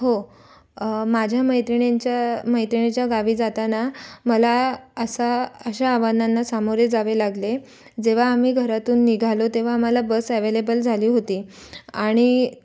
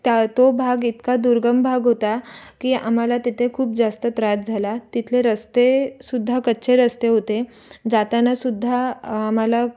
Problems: background sounds at intervals